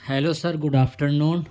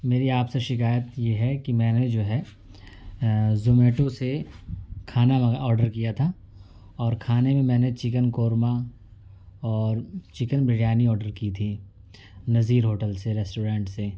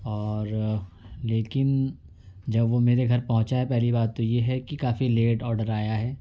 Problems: none marked